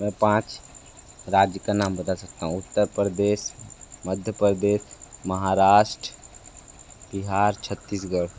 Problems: constant background noise